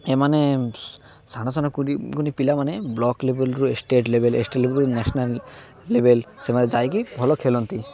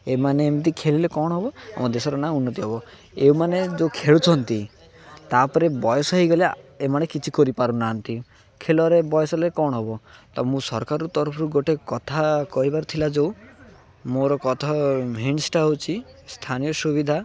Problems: none marked